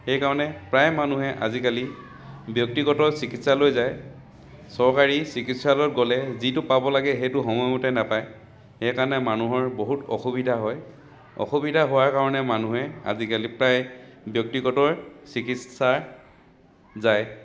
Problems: none marked